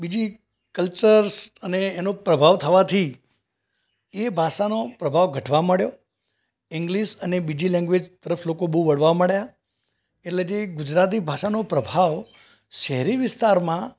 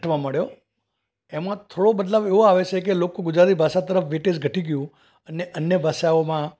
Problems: background sounds at intervals